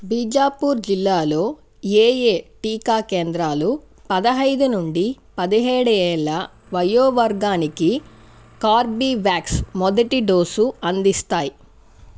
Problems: constant background noise